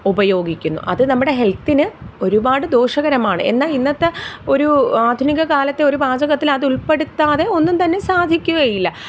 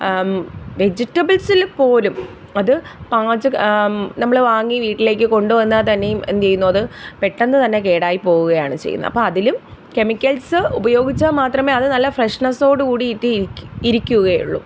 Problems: none marked